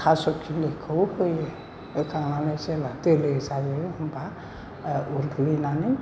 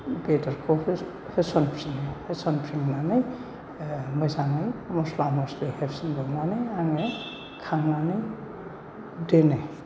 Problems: none marked